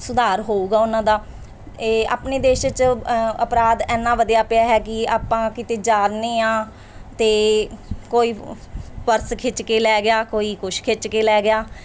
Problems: none marked